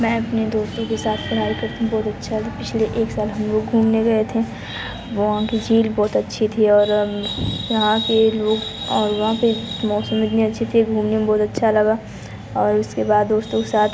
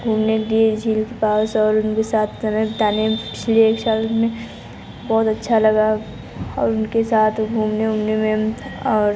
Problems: constant background noise